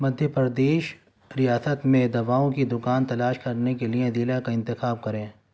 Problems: none marked